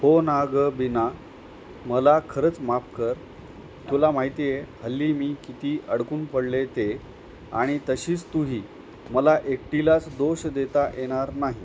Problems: constant background noise